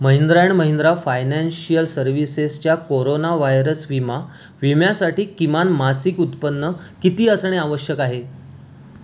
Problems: none marked